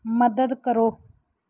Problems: background sounds at intervals